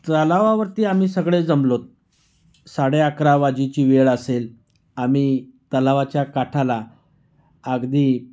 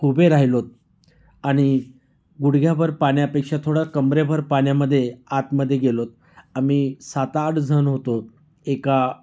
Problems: constant background noise, background conversations at intervals